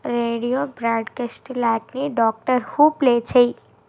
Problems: constant background noise